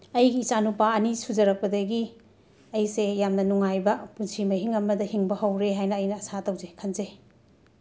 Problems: constant background noise, background conversations at intervals